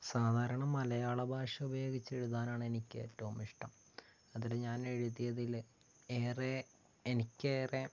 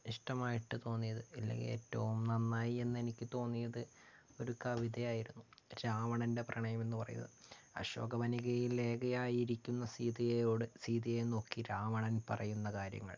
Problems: low volume